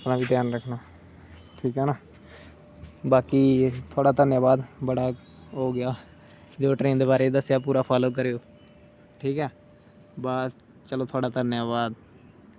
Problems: constant background noise